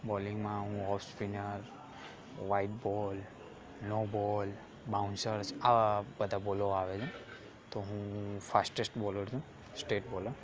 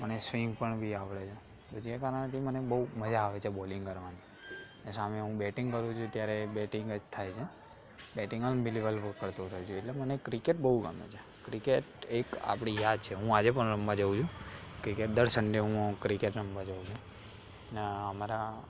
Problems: constant background noise, background conversations at intervals